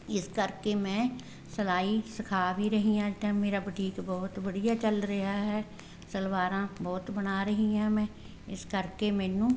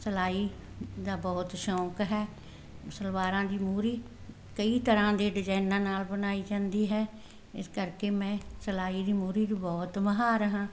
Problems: none marked